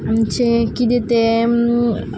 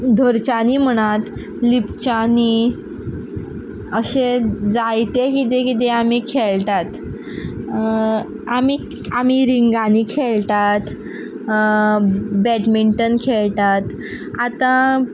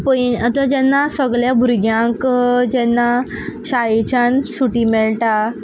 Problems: background sounds at intervals